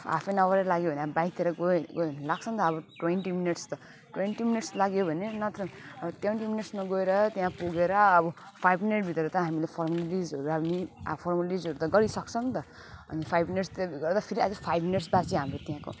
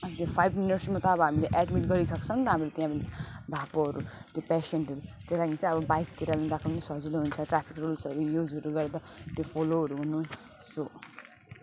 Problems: constant background noise, continuous background conversations, low volume